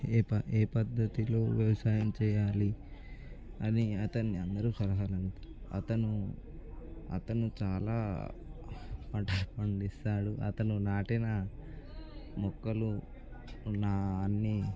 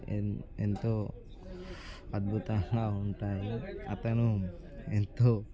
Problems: background conversations at intervals